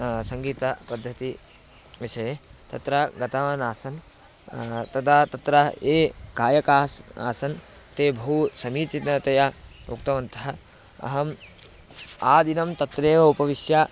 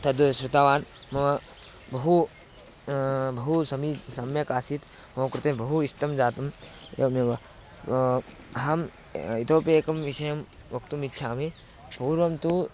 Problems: constant background noise